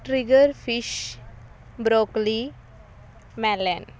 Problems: constant background noise